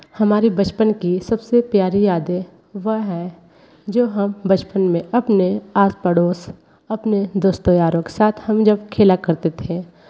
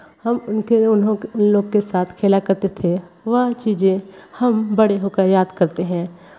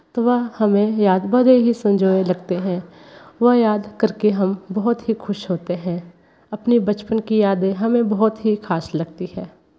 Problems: background sounds at intervals